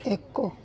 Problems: none marked